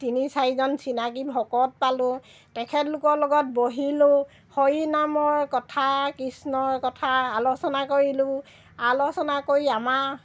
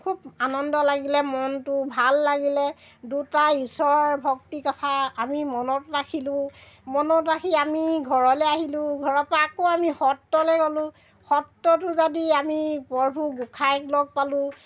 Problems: background sounds at intervals